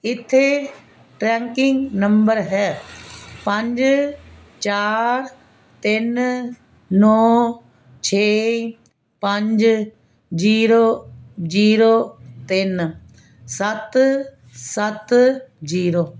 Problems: none marked